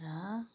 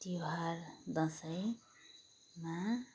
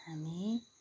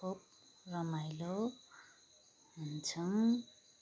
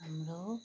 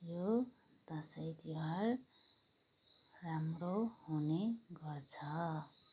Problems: background sounds at intervals, background conversations at intervals